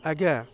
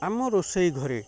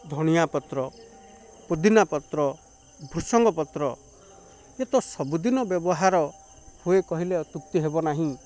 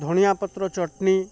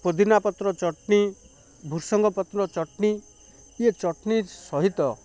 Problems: constant background noise